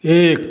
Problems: none marked